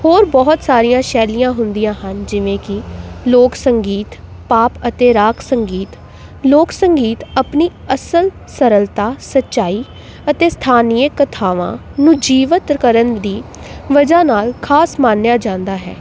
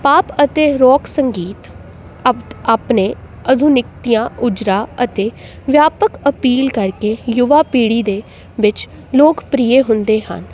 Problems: background sounds at intervals